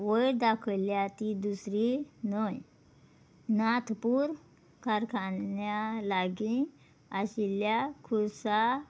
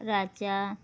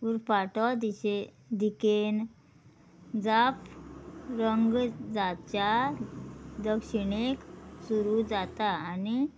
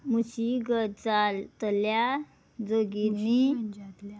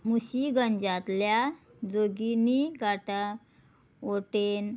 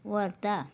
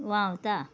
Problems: background sounds at intervals